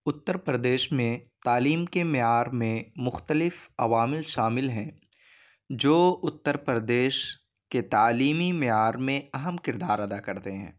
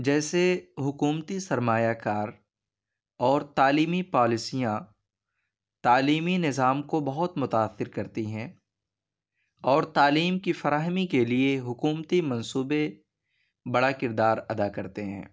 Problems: none marked